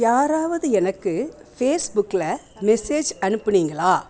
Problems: background conversations at intervals